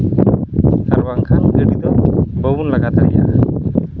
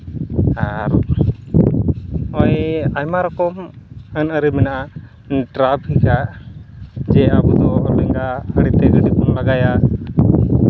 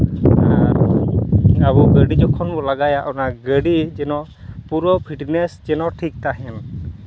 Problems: constant background noise